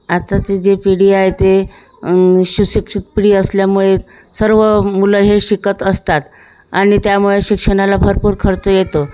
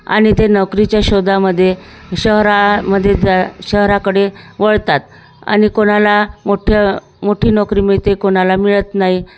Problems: constant background noise, background conversations at intervals